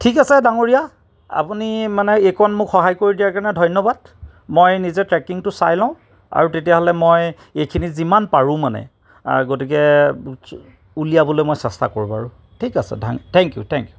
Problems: none marked